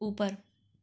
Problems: background sounds at intervals